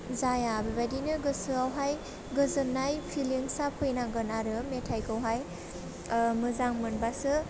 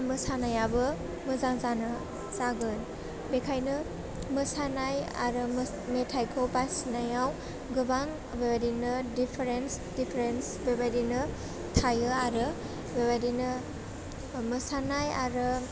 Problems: low volume